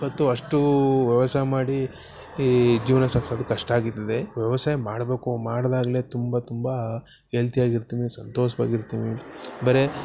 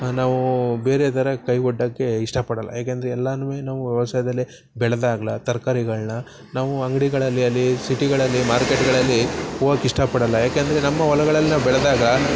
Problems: background sounds at intervals